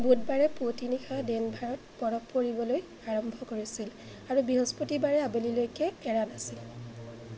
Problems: constant background noise, background conversations at intervals